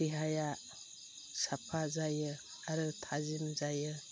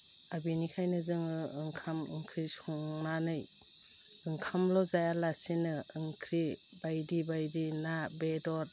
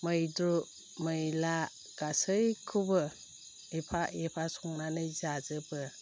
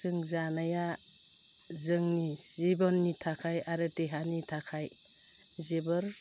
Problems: low volume